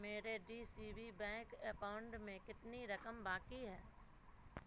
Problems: low volume